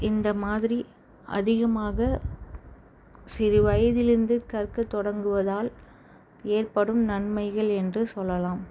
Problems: none marked